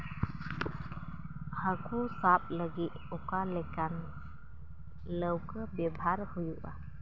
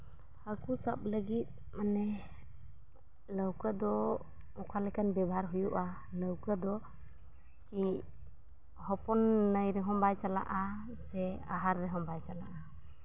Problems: background sounds at intervals, low volume